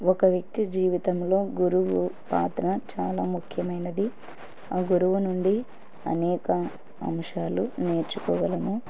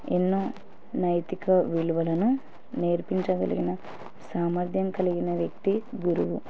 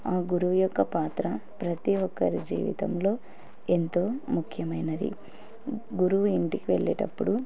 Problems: background sounds at intervals